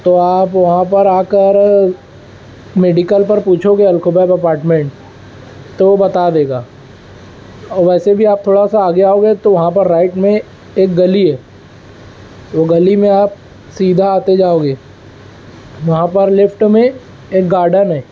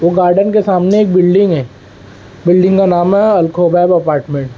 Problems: none marked